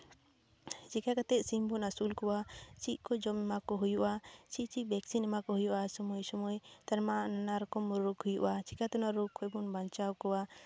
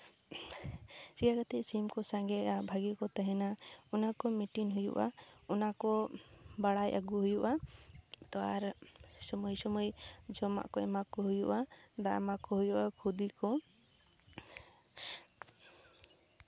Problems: background sounds at intervals